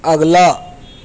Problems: constant background noise, background conversations at intervals